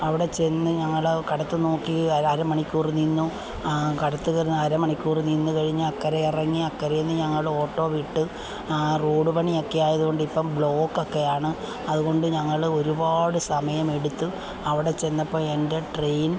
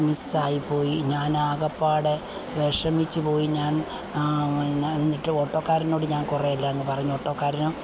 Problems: constant background noise